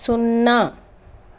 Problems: constant background noise